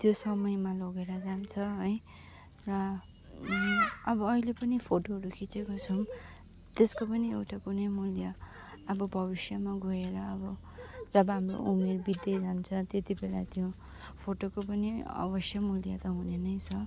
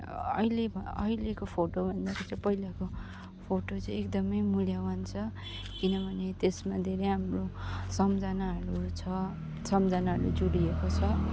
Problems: none marked